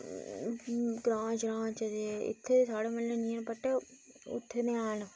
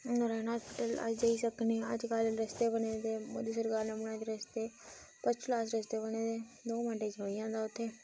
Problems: none marked